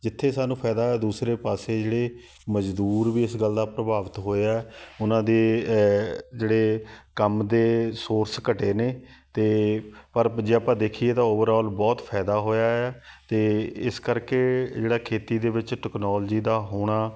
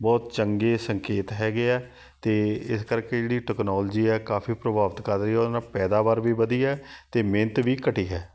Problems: none marked